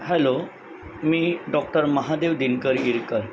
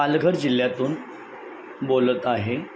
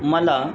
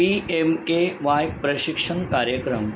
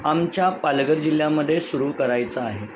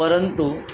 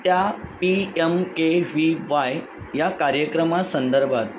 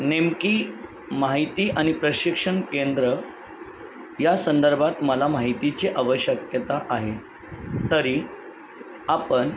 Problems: constant background noise